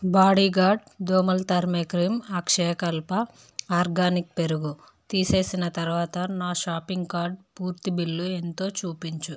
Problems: none marked